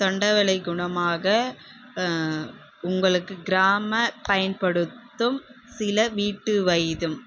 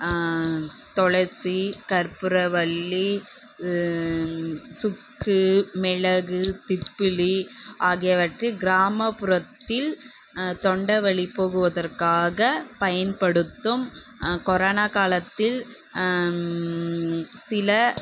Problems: none marked